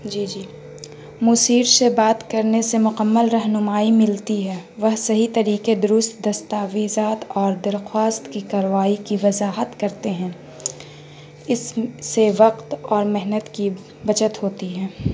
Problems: constant background noise